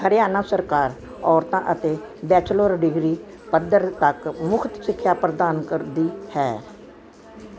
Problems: background sounds at intervals, continuous background conversations